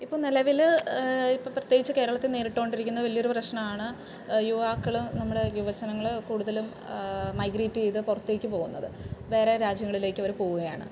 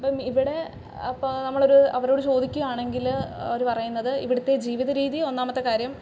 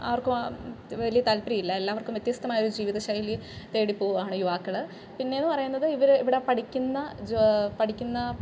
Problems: background sounds at intervals